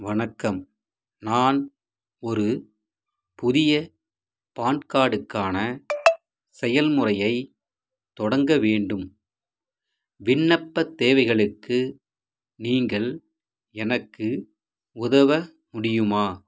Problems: background sounds at intervals